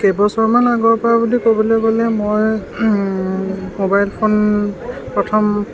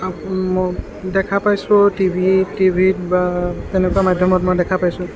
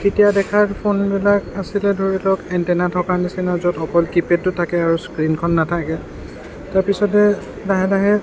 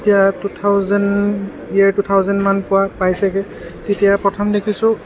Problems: constant background noise